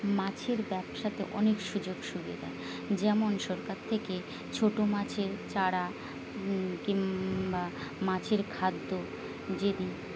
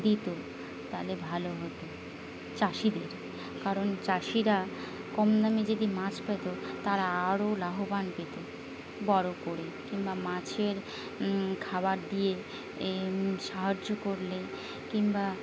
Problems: constant background noise